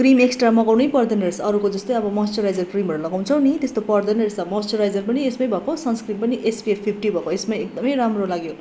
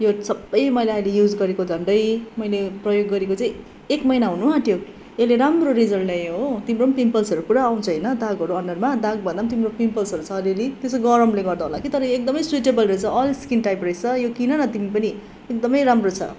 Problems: background conversations at intervals